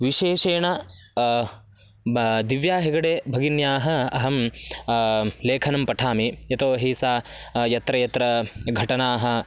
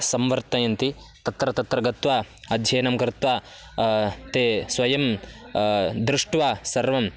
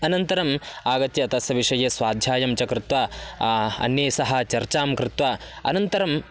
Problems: background sounds at intervals